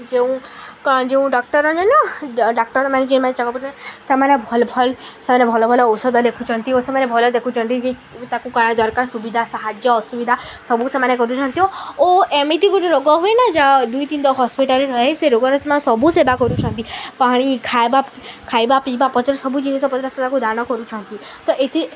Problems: none marked